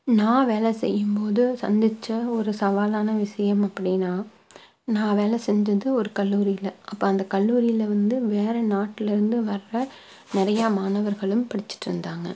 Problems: none marked